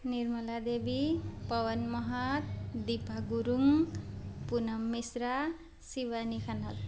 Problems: constant background noise